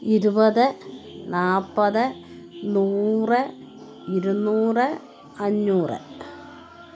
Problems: continuous background conversations